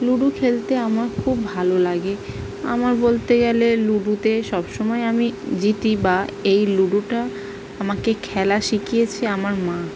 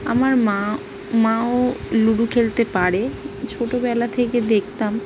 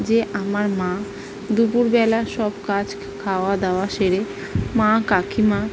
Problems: constant background noise